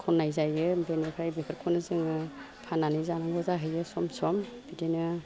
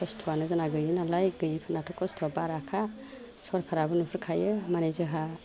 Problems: none marked